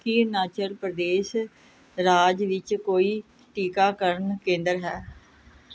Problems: background sounds at intervals